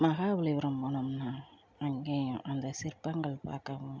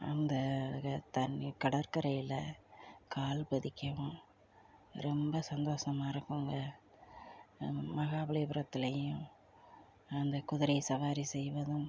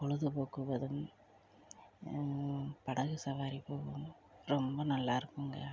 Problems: low volume